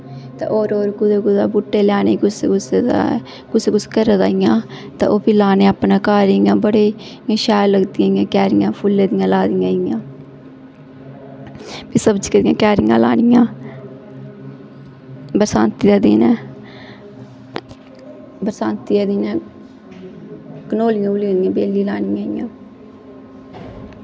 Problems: constant background noise, echo